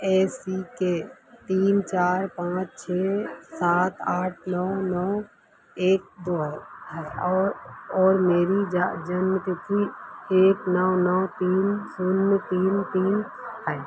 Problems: constant background noise